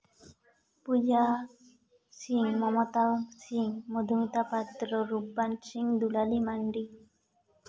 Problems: background sounds at intervals, background conversations at intervals, echo